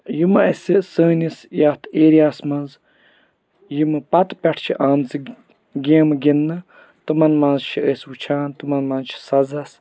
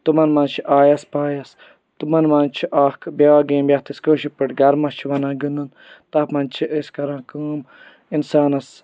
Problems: background sounds at intervals